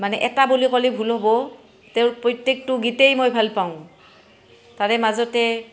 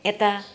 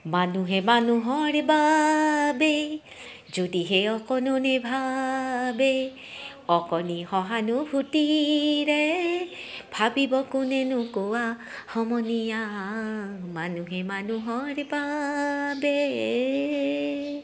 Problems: background sounds at intervals, background conversations at intervals